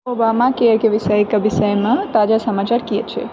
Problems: background sounds at intervals